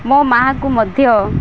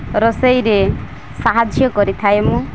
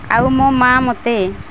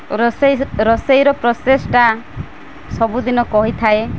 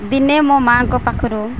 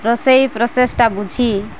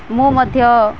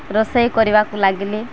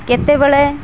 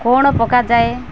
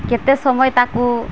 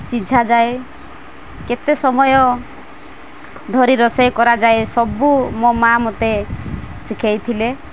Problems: constant background noise